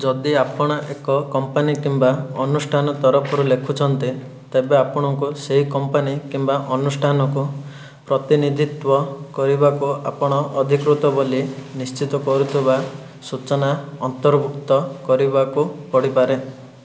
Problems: background sounds at intervals